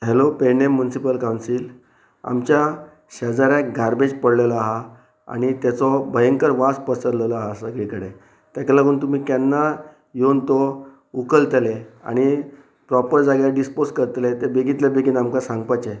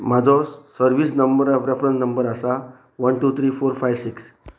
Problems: none marked